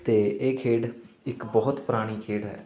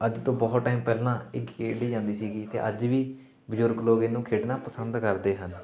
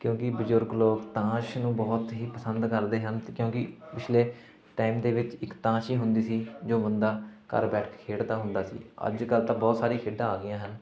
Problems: continuous background conversations